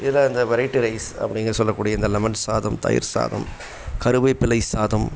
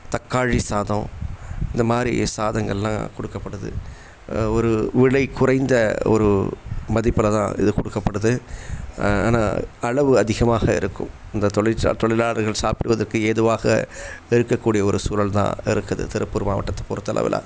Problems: background sounds at intervals